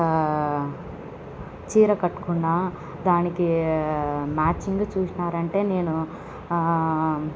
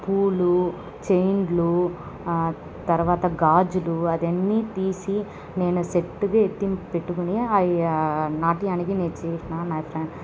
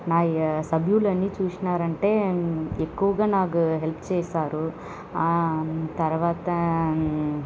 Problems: none marked